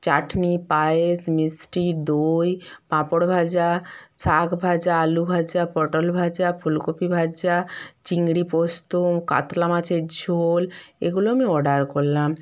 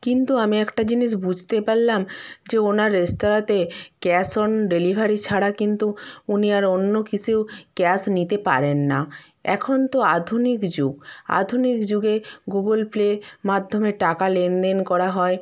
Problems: none marked